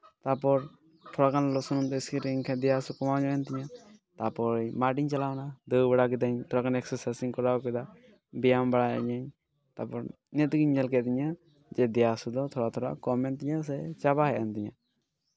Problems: background sounds at intervals